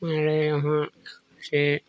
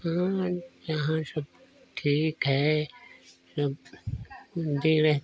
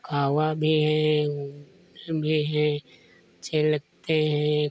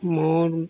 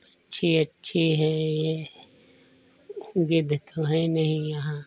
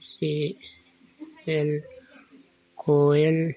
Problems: background sounds at intervals